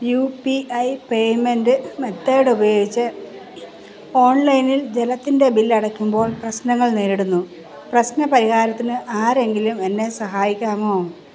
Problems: constant background noise